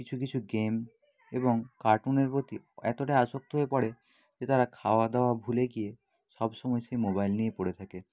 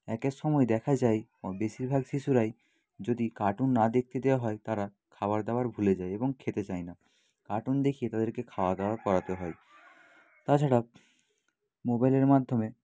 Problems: background sounds at intervals